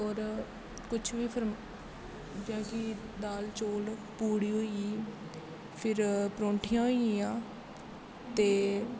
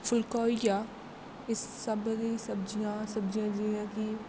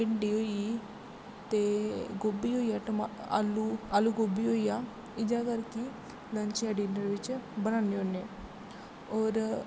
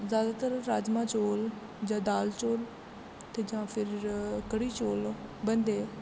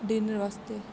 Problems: constant background noise